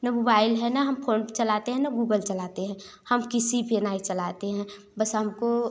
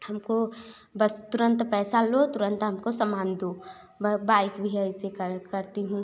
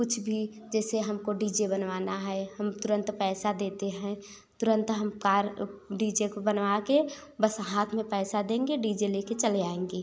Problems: background sounds at intervals